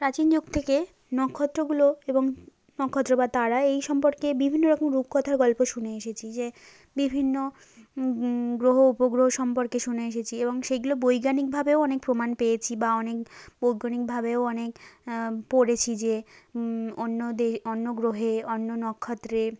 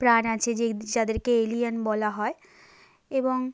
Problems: background sounds at intervals